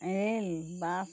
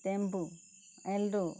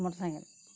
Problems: constant background noise